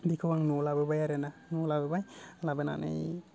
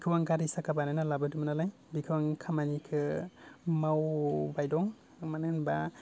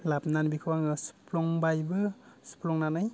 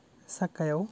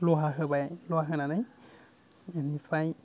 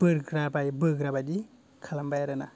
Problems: none marked